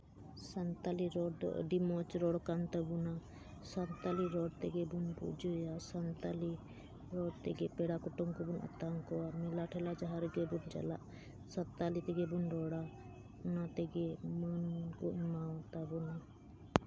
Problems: none marked